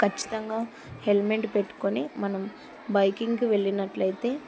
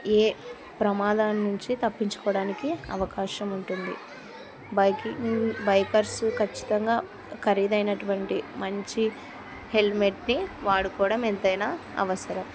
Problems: continuous background conversations